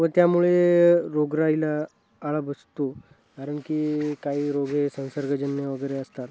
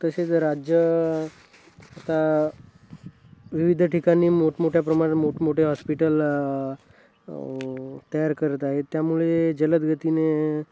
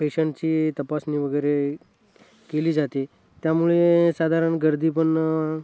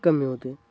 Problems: constant background noise, continuous background conversations